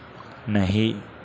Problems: low volume